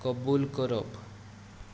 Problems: constant background noise